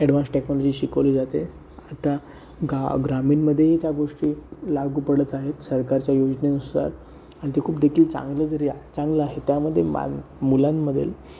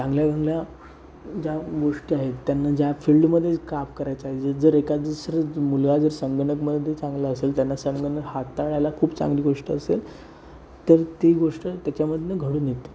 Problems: constant background noise